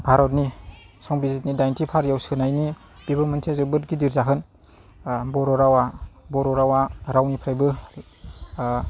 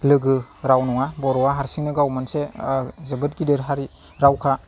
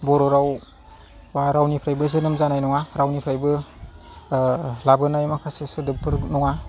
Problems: low volume